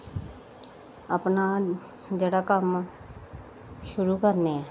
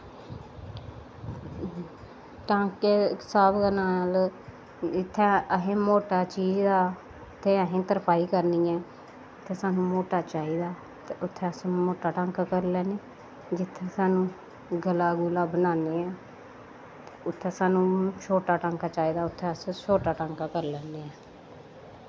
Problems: none marked